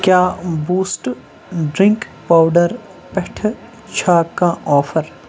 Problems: constant background noise